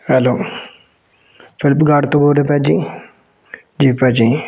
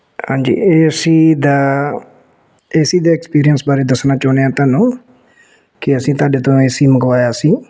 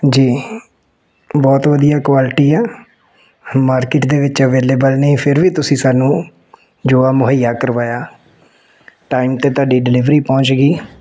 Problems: background sounds at intervals